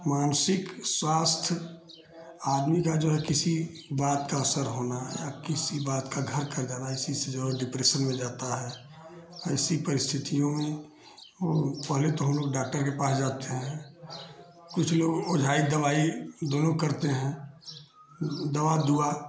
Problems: none marked